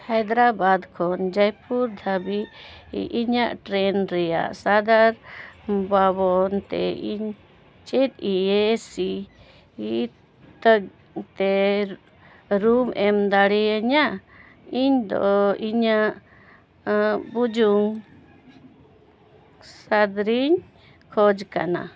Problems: background sounds at intervals